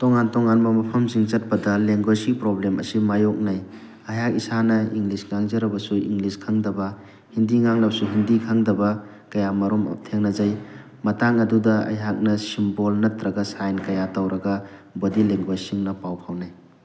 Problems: constant background noise